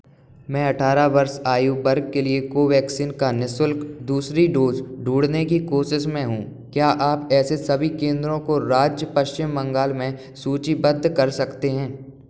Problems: none marked